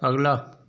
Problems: none marked